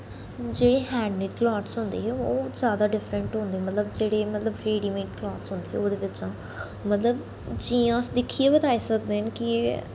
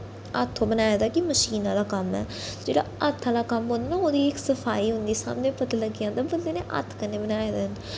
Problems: none marked